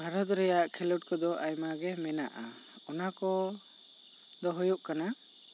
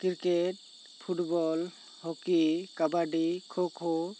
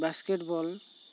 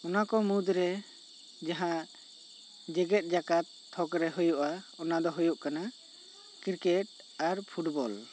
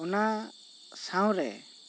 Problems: constant background noise